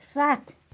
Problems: none marked